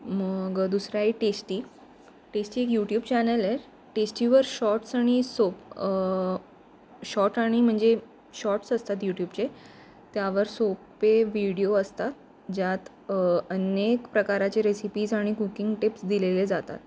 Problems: none marked